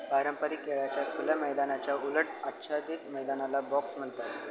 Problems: constant background noise, background conversations at intervals